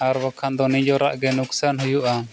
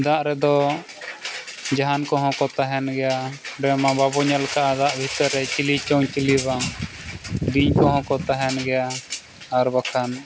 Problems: constant background noise